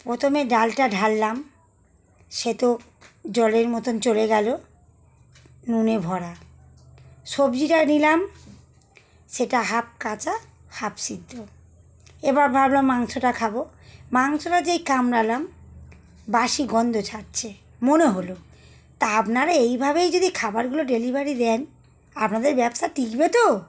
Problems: none marked